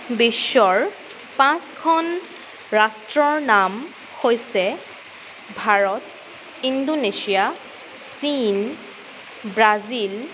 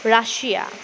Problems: constant background noise